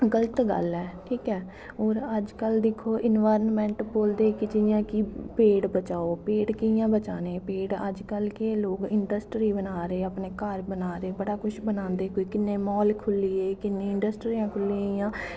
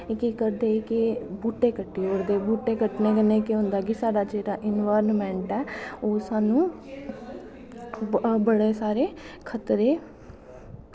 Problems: none marked